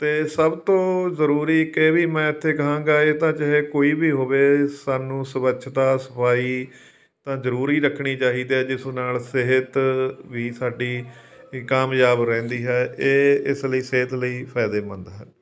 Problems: background sounds at intervals